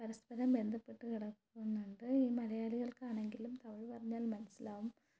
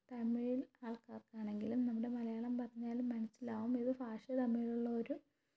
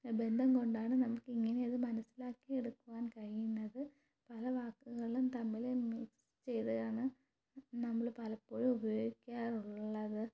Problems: low volume